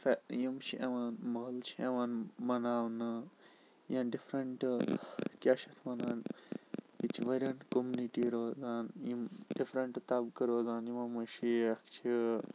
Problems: constant background noise, low volume